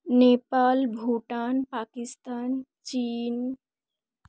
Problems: none marked